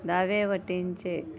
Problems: background sounds at intervals